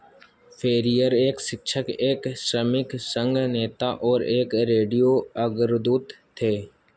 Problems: constant background noise